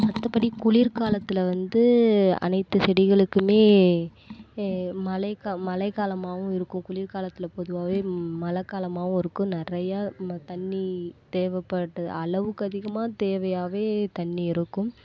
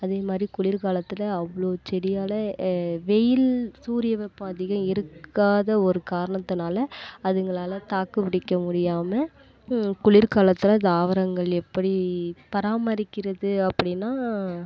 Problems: background sounds at intervals